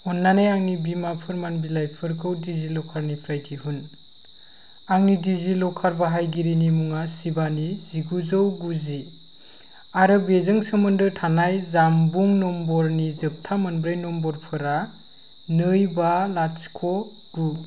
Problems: none marked